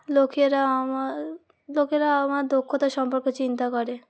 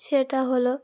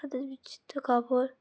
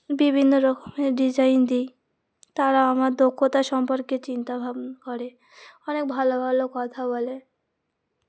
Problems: constant background noise